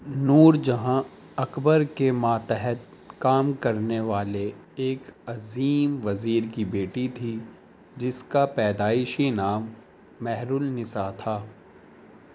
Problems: constant background noise